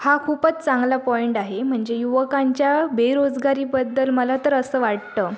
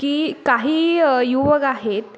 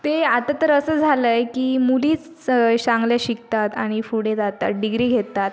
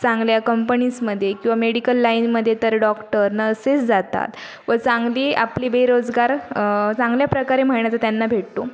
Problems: background sounds at intervals, background conversations at intervals